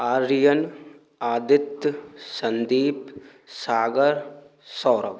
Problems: constant background noise